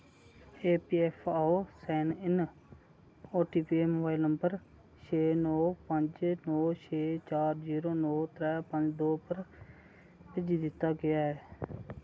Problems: none marked